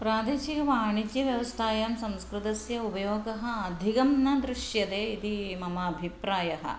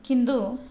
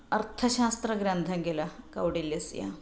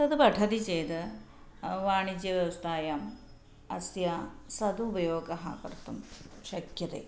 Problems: background sounds at intervals